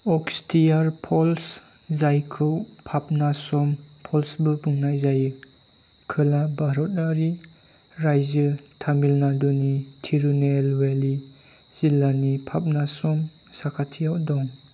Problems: constant background noise